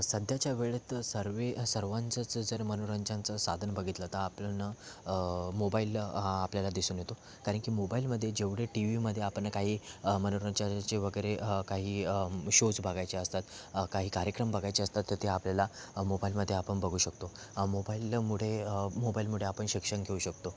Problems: constant background noise, continuous background conversations